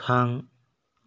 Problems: none marked